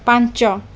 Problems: constant background noise